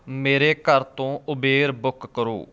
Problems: background sounds at intervals